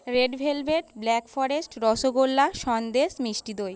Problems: background sounds at intervals